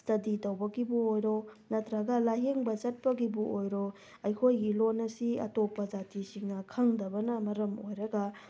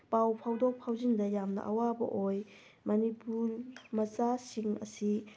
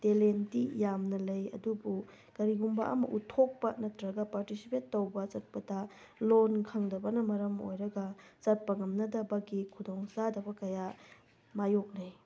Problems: background sounds at intervals